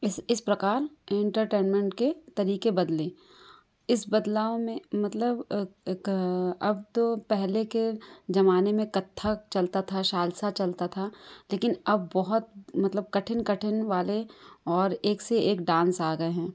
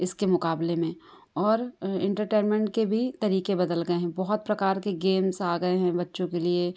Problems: constant background noise